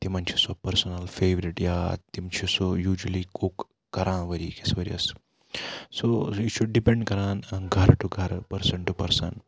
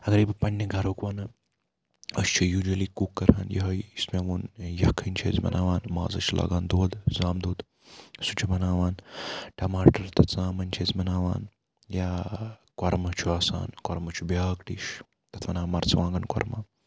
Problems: background sounds at intervals